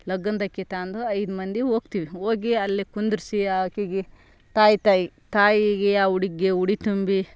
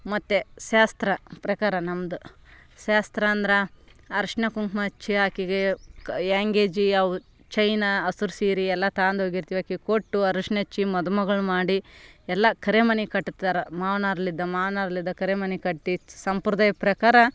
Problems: none marked